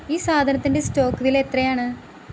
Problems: constant background noise